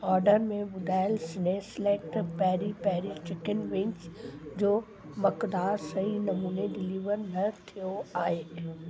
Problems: constant background noise